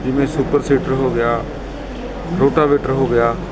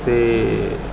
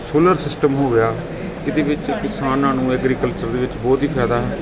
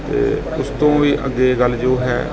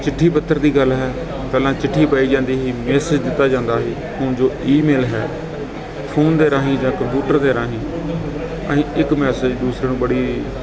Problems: constant background noise, continuous background conversations